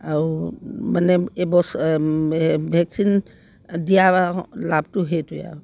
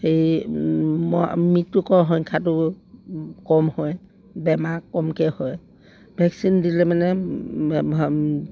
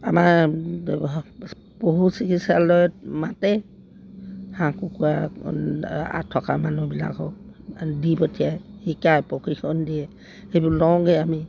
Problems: none marked